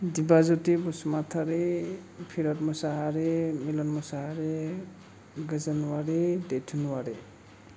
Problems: low volume